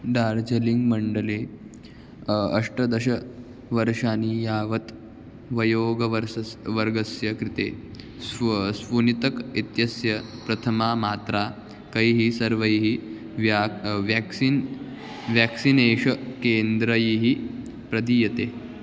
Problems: background sounds at intervals